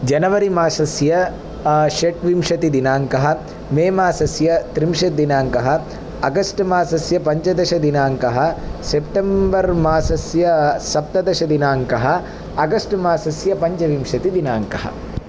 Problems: none marked